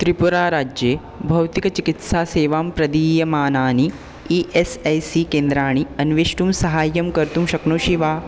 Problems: constant background noise